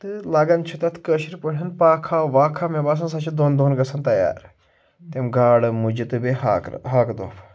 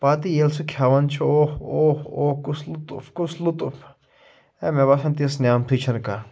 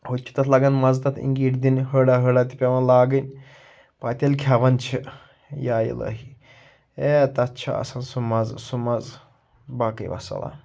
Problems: none marked